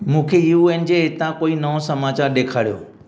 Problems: none marked